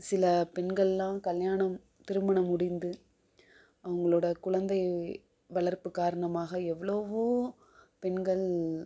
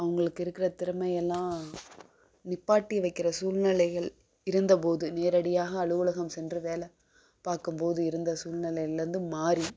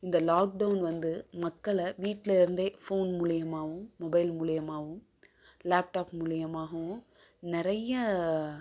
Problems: none marked